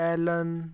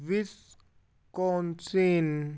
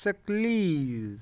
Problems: background sounds at intervals